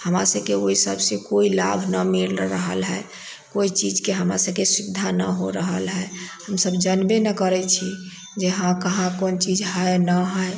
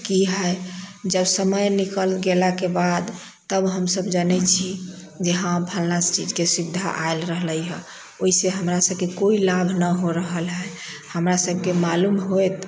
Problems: background sounds at intervals